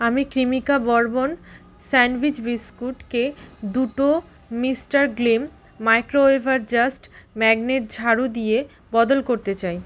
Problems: constant background noise